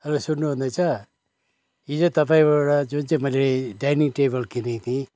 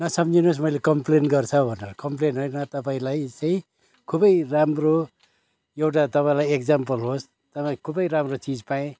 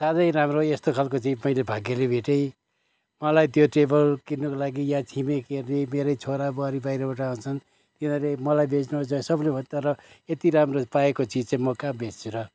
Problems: background sounds at intervals